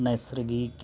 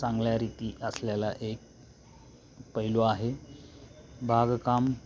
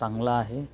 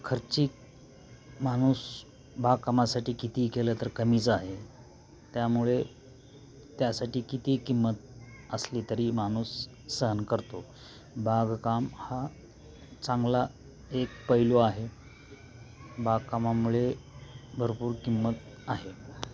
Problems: constant background noise, continuous background conversations